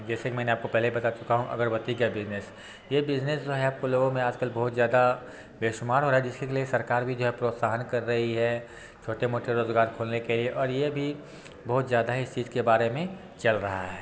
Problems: constant background noise